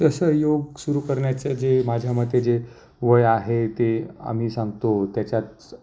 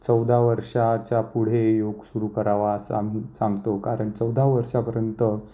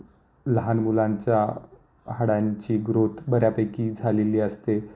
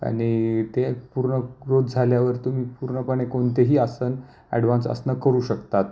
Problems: constant background noise, low volume